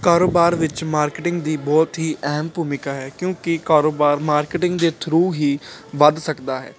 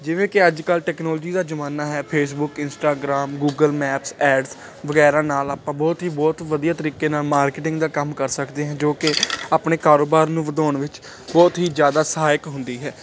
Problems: none marked